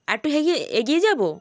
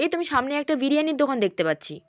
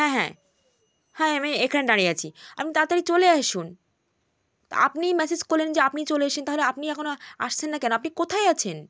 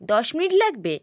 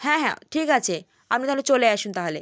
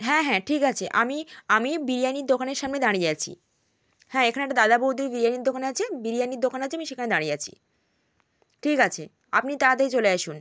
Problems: none marked